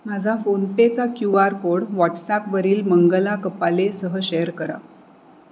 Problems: none marked